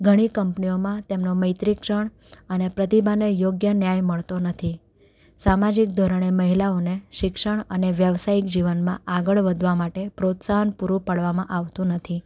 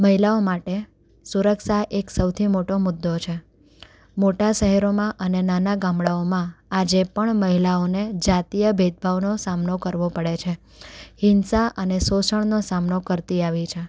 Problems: none marked